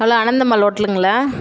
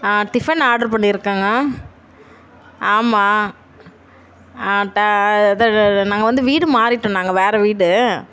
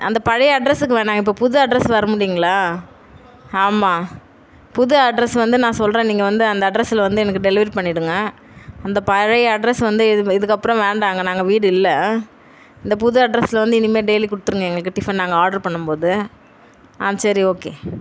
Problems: none marked